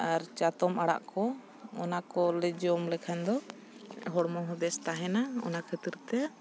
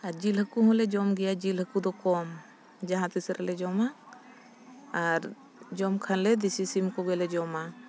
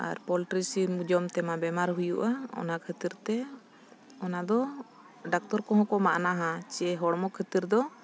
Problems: background sounds at intervals